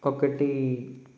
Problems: constant background noise